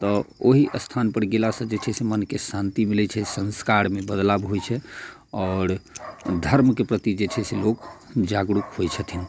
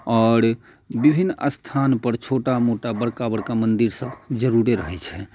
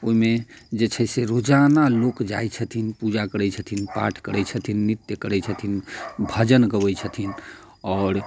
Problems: none marked